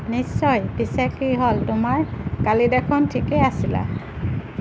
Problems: none marked